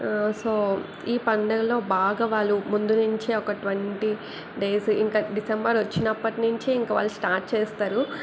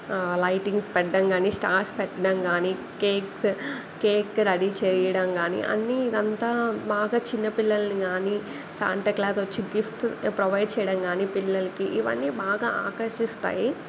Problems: none marked